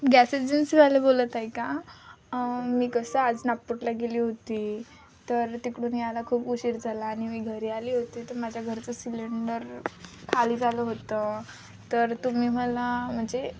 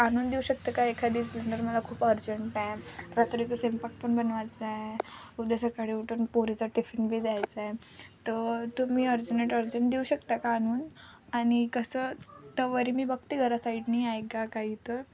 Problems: none marked